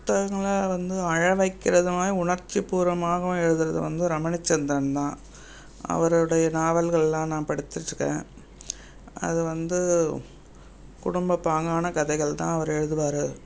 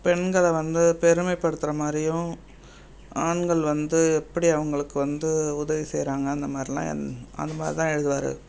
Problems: constant background noise